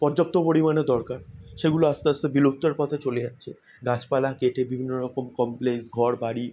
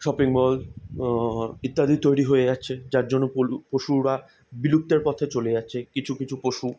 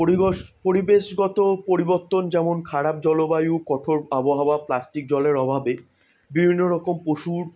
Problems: none marked